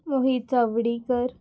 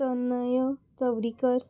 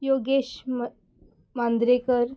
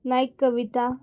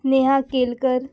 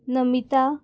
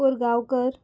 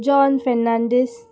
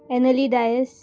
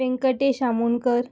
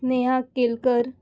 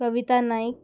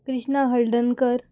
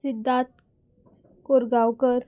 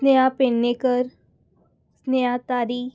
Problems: background sounds at intervals